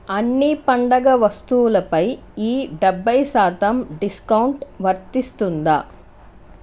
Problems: constant background noise